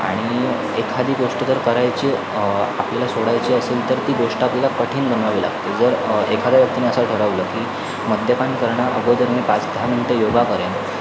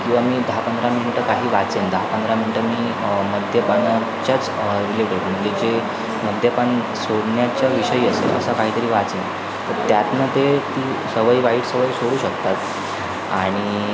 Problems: constant background noise, continuous background conversations